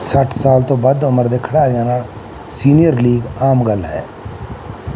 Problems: none marked